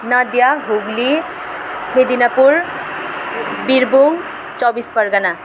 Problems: constant background noise